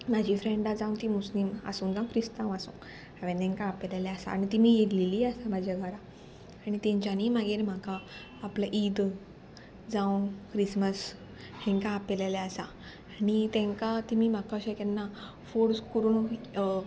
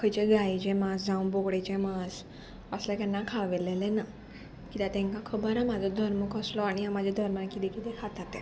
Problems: constant background noise